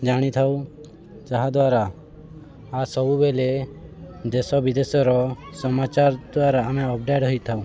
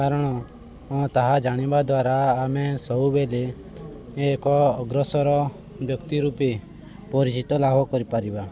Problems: constant background noise